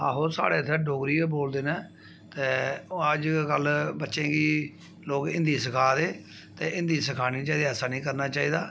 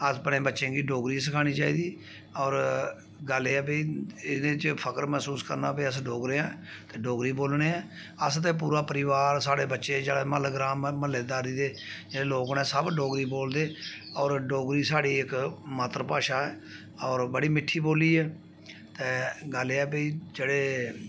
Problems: background sounds at intervals